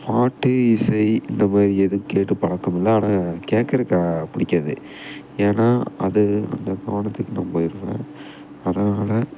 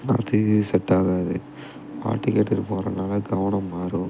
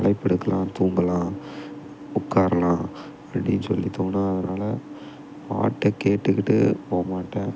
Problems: background sounds at intervals